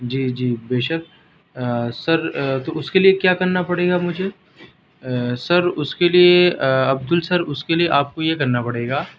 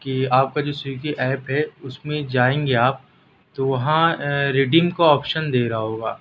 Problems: none marked